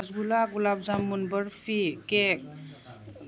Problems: none marked